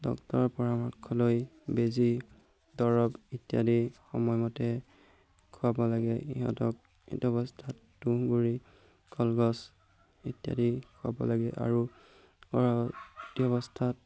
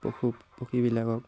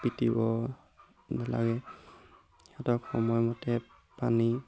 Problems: background sounds at intervals